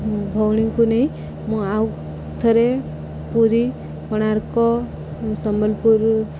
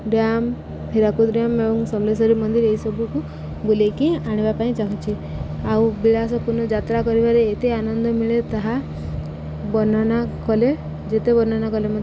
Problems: none marked